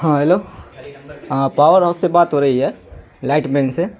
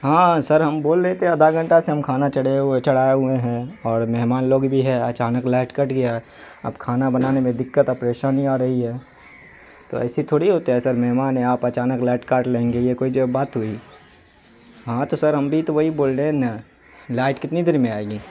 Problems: constant background noise